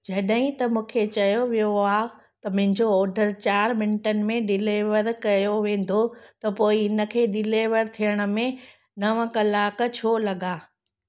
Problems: none marked